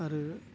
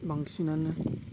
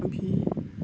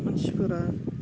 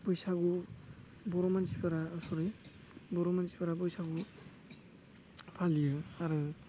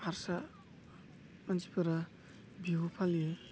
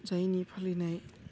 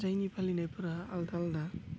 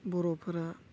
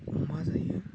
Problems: constant background noise